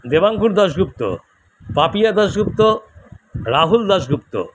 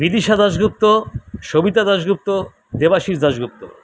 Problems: constant background noise, background conversations at intervals